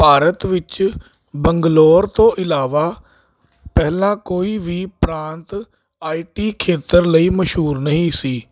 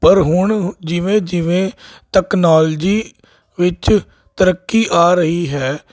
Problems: constant background noise